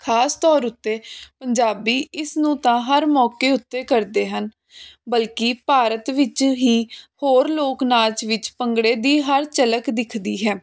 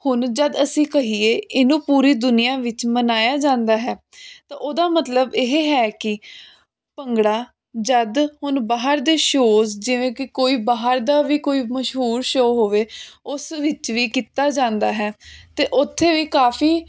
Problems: constant background noise